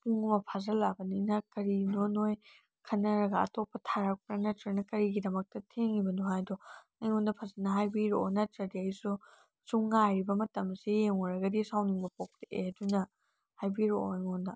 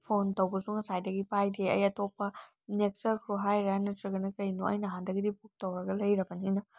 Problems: none marked